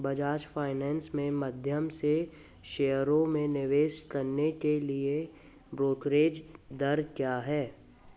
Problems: constant background noise